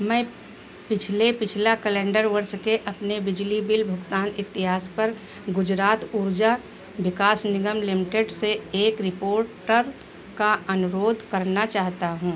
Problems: none marked